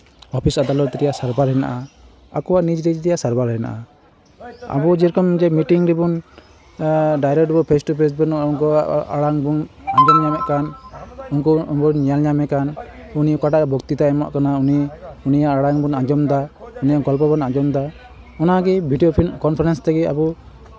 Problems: constant background noise, continuous background conversations